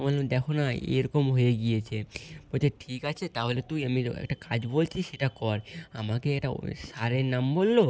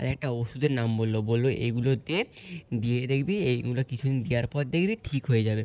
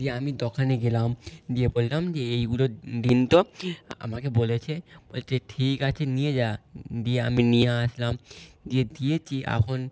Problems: none marked